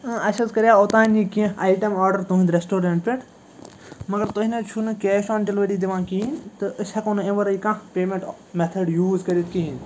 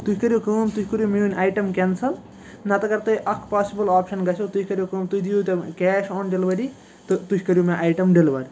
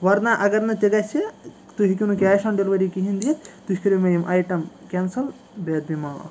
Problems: constant background noise